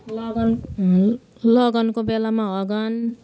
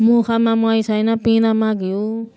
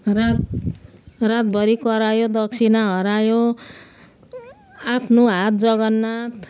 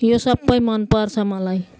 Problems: constant background noise, continuous background conversations